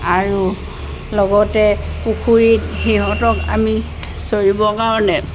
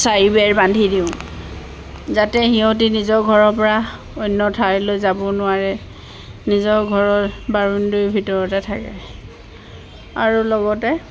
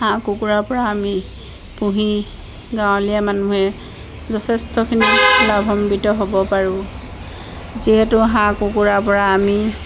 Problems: none marked